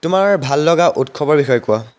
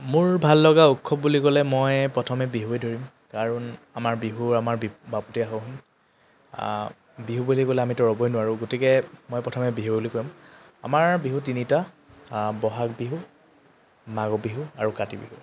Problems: constant background noise